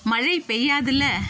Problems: constant background noise